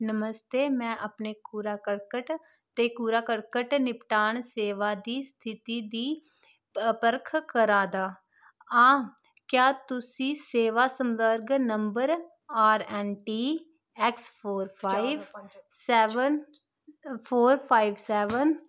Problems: constant background noise